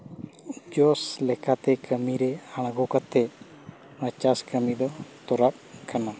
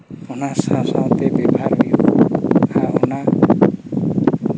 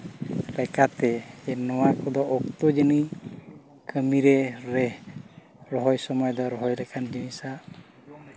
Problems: constant background noise